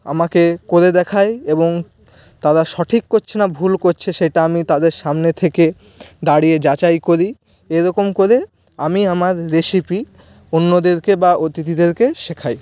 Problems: none marked